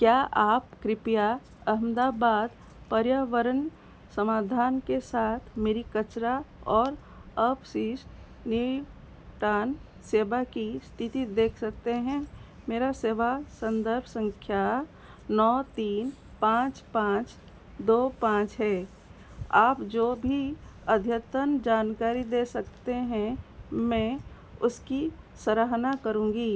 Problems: constant background noise